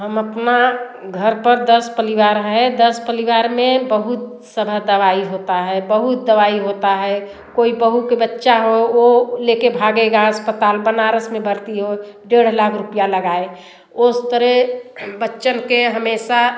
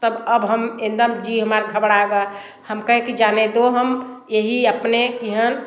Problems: constant background noise, background conversations at intervals, echo